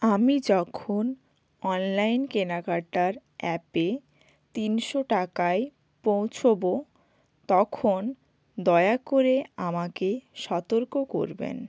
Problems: none marked